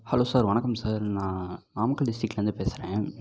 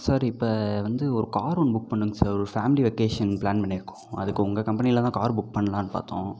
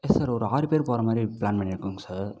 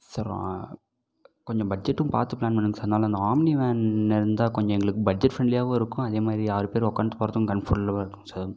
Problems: background sounds at intervals